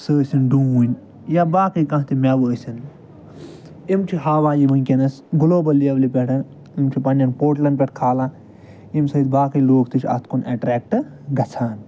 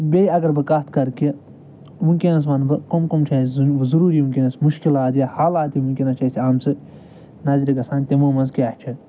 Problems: none marked